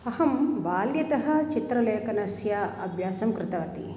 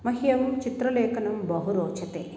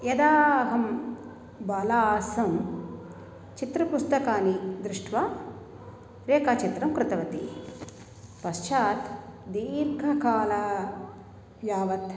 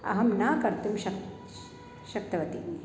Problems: none marked